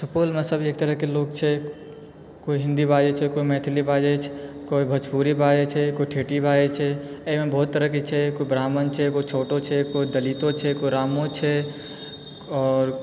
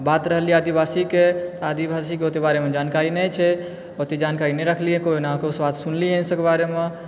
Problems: background sounds at intervals